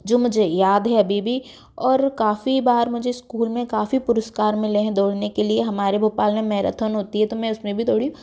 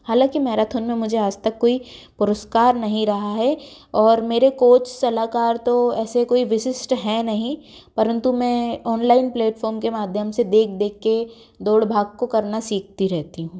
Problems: background sounds at intervals